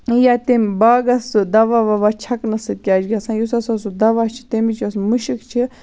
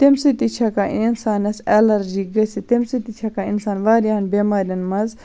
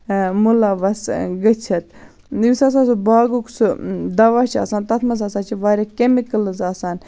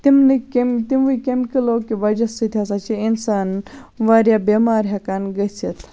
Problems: constant background noise